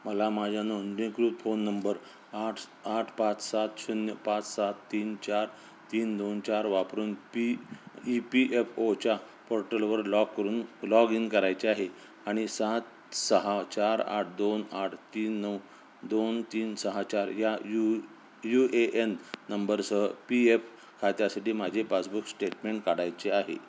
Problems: constant background noise